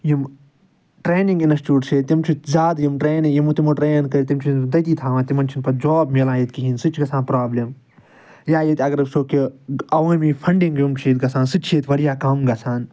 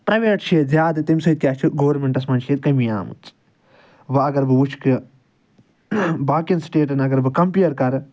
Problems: none marked